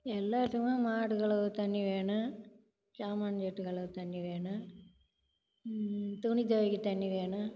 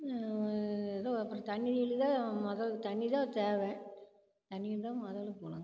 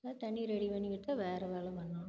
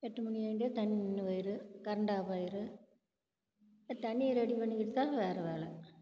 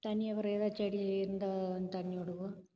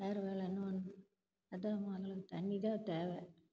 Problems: low volume